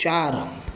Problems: constant background noise